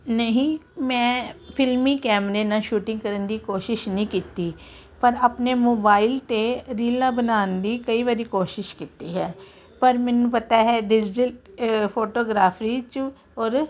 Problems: constant background noise